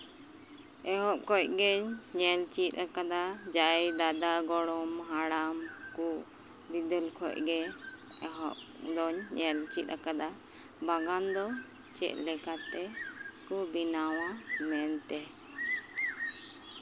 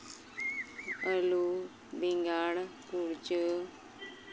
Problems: constant background noise, background conversations at intervals